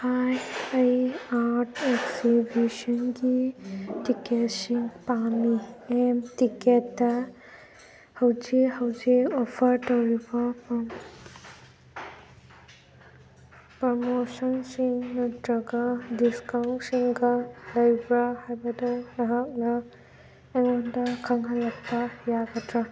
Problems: constant background noise